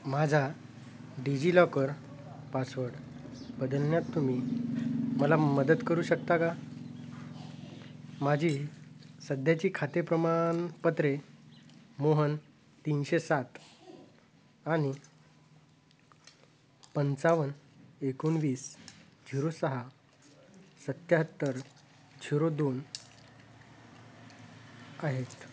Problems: constant background noise